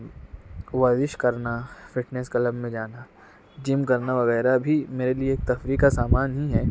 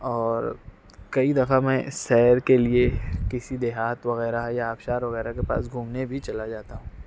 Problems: background sounds at intervals